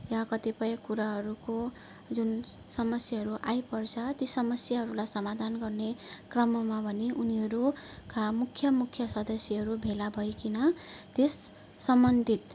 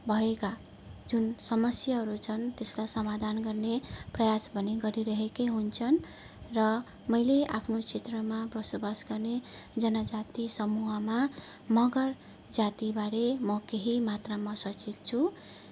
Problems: constant background noise, background conversations at intervals